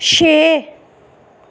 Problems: none marked